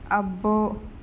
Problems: constant background noise